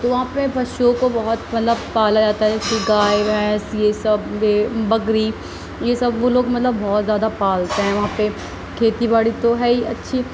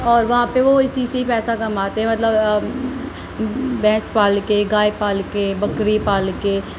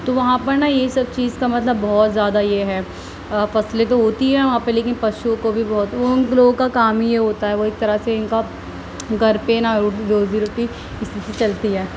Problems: constant background noise